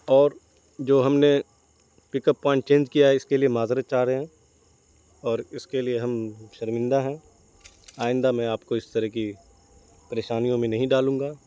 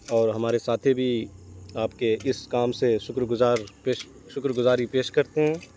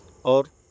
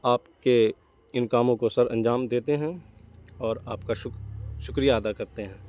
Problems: constant background noise